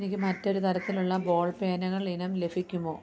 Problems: constant background noise